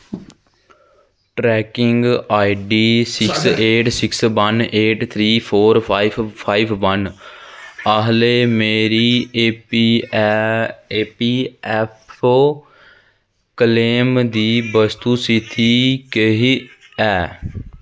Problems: constant background noise